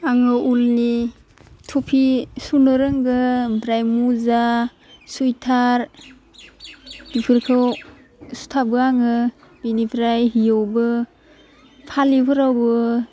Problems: constant background noise